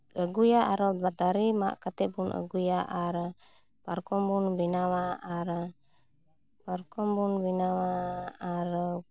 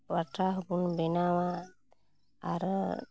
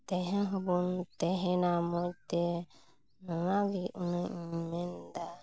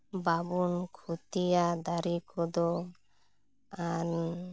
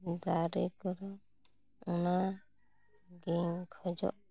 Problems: none marked